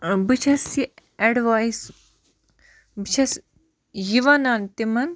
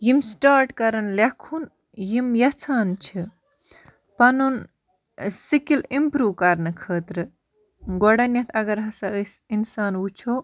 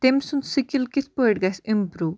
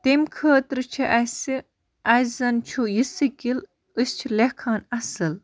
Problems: none marked